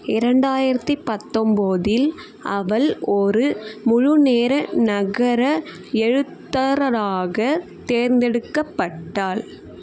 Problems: none marked